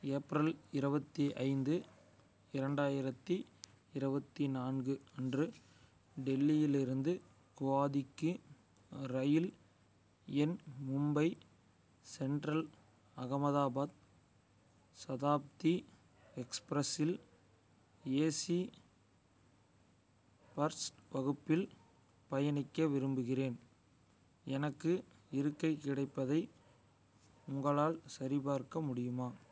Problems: none marked